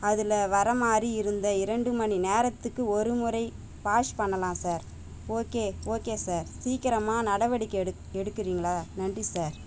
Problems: constant background noise